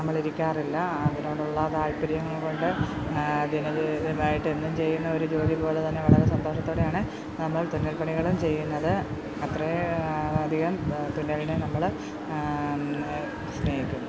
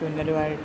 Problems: constant background noise